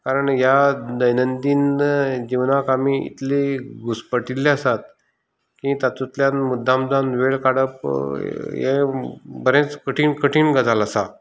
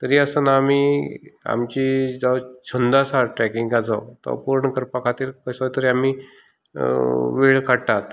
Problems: none marked